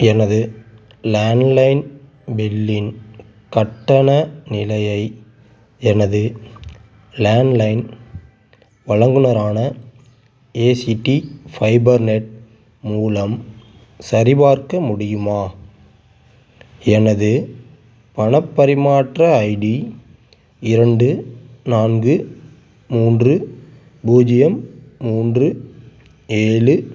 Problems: constant background noise